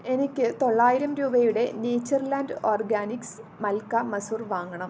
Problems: constant background noise